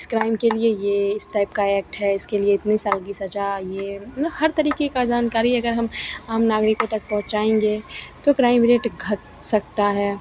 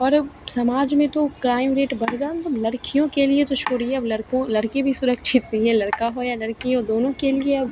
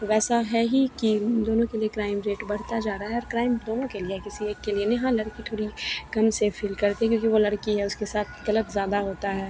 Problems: none marked